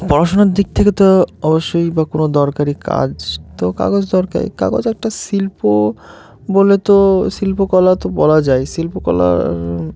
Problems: none marked